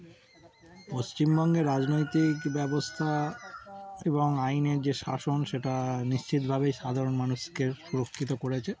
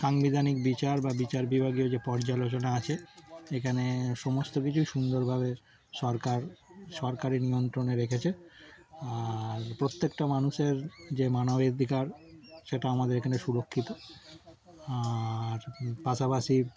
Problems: background sounds at intervals